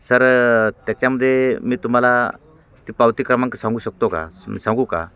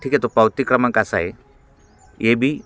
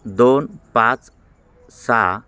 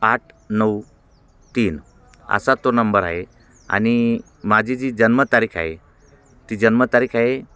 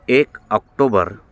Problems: constant background noise, background conversations at intervals